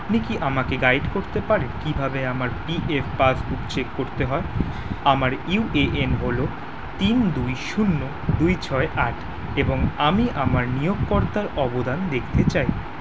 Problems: constant background noise